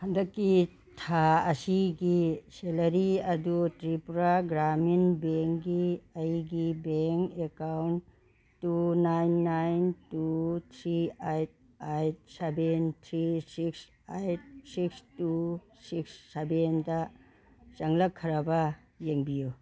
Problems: background sounds at intervals